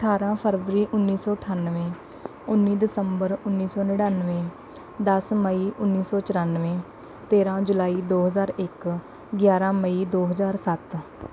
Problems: none marked